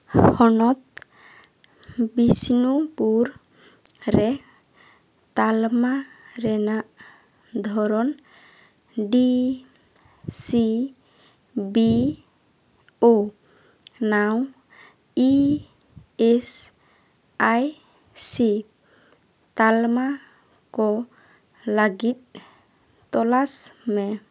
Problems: none marked